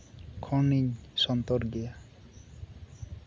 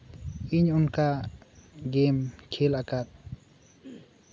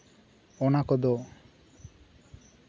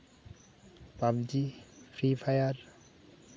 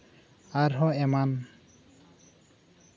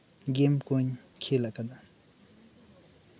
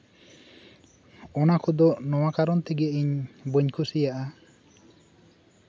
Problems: constant background noise